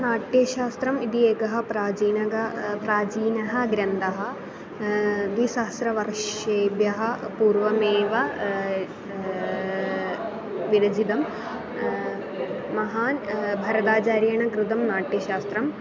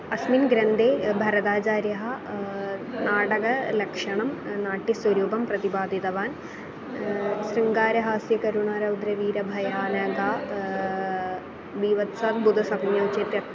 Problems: constant background noise, continuous background conversations